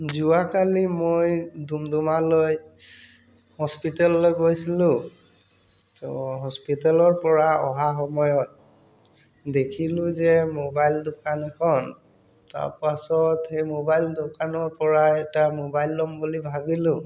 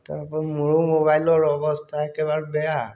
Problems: background sounds at intervals